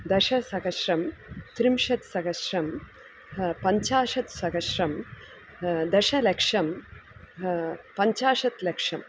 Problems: constant background noise